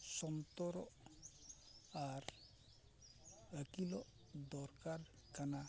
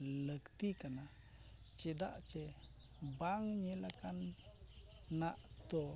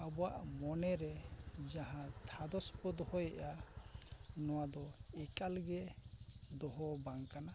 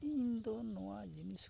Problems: background sounds at intervals, low volume